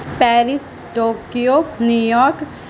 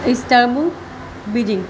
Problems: constant background noise